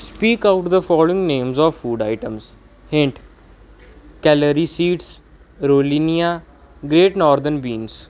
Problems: background sounds at intervals